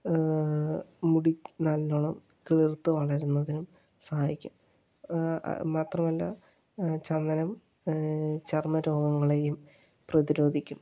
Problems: low volume